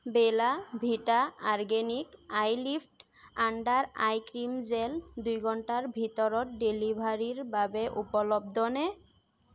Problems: constant background noise